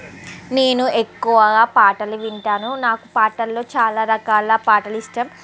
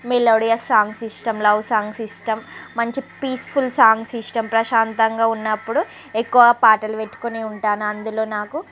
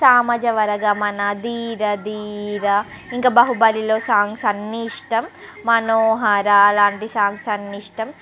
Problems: none marked